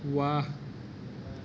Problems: constant background noise